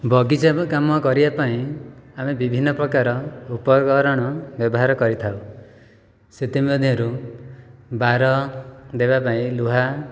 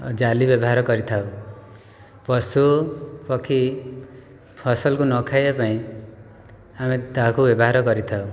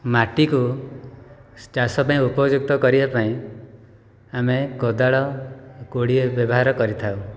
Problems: none marked